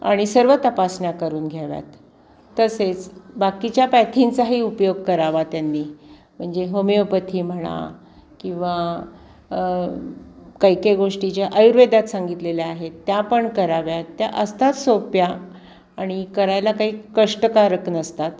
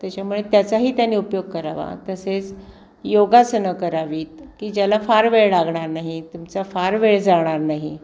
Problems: none marked